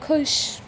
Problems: background sounds at intervals